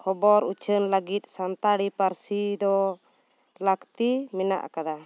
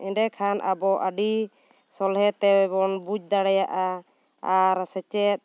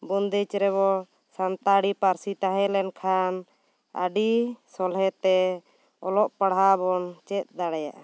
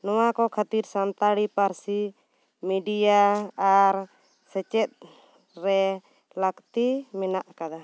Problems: none marked